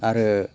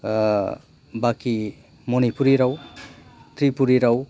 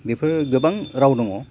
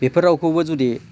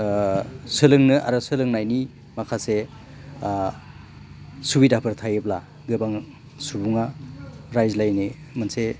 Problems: none marked